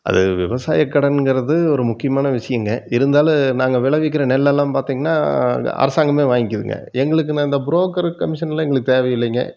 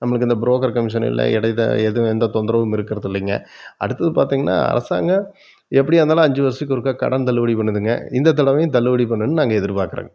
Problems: none marked